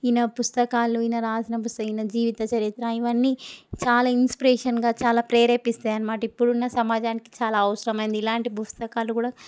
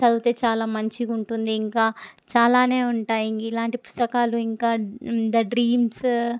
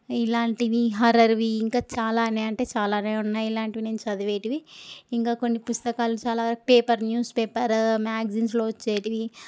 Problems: none marked